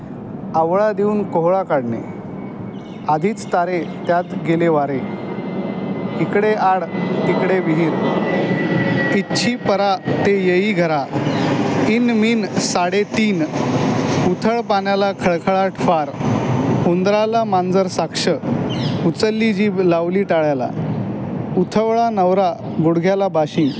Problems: none marked